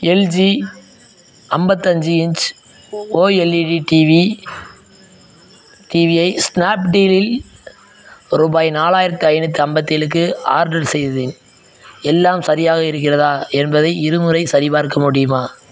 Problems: background sounds at intervals, background conversations at intervals